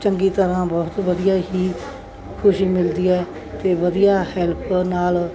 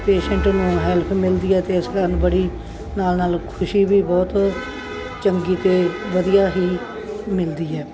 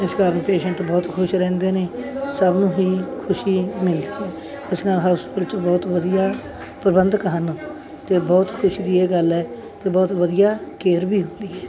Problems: constant background noise